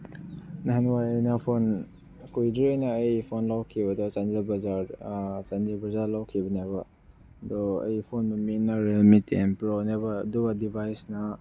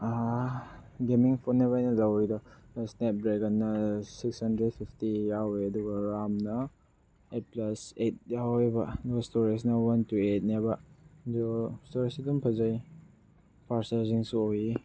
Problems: background sounds at intervals